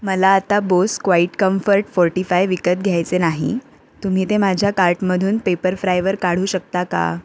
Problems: constant background noise